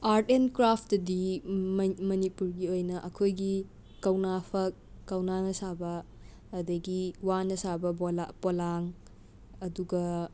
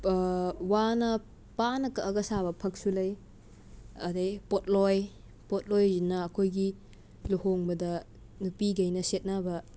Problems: background sounds at intervals